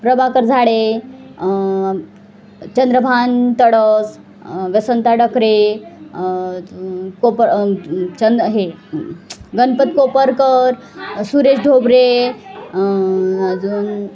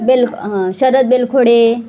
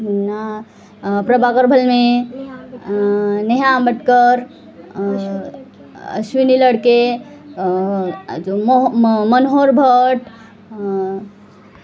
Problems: constant background noise, continuous background conversations